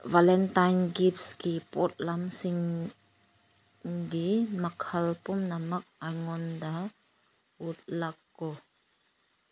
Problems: none marked